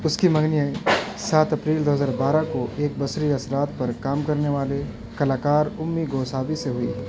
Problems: constant background noise